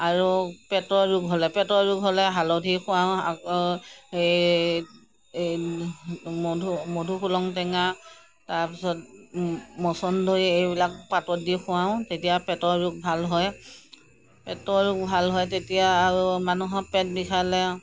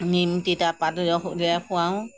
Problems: none marked